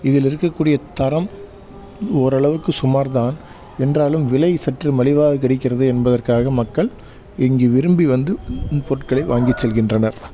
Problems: constant background noise